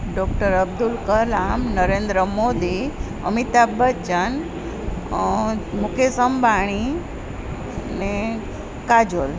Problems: none marked